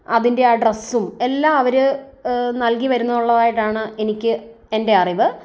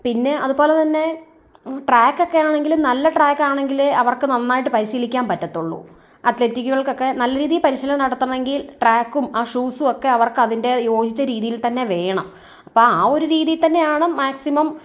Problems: none marked